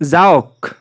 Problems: constant background noise